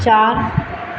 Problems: constant background noise